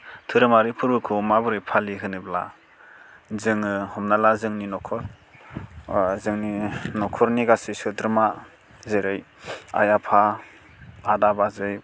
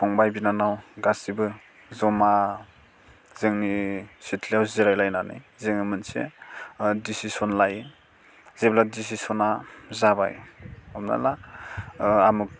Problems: none marked